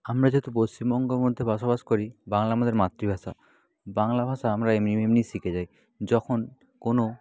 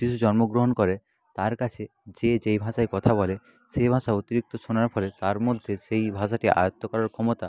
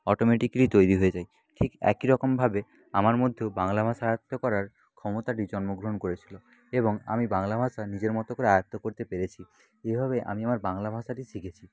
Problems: constant background noise, background conversations at intervals